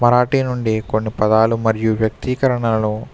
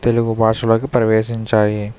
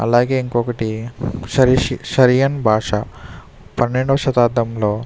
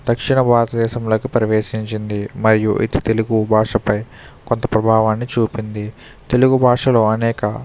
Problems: none marked